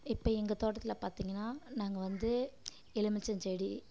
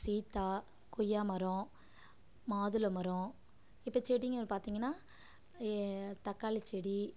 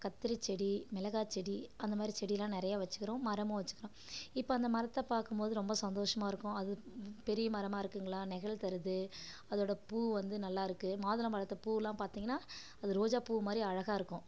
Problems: none marked